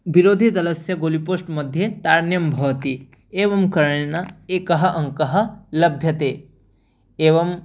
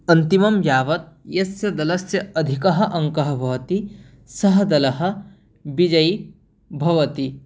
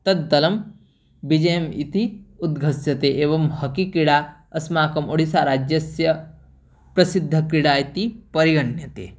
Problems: none marked